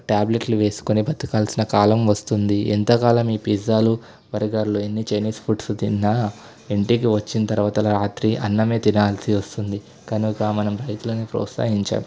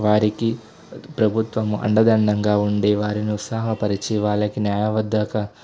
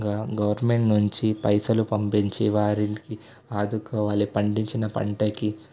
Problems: constant background noise